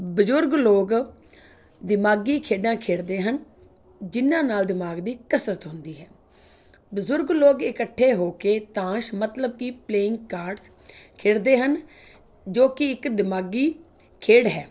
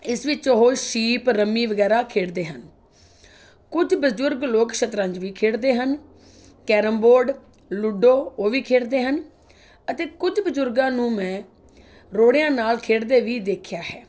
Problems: none marked